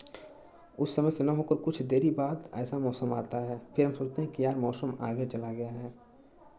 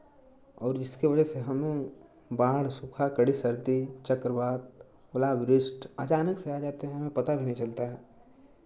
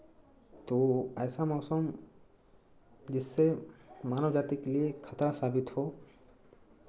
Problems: constant background noise